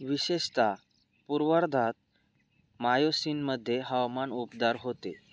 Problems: none marked